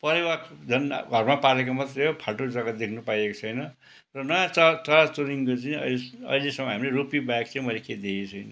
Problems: background sounds at intervals